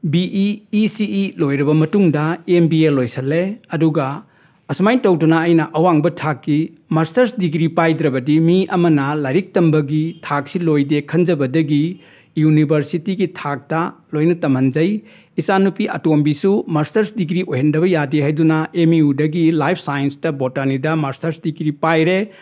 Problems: none marked